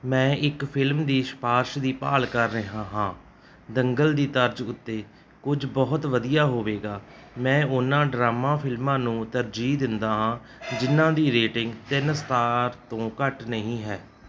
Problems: background sounds at intervals